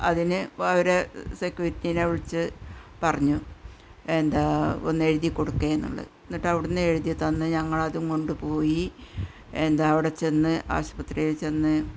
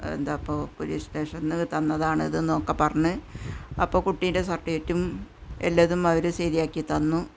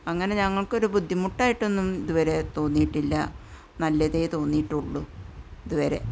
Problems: low volume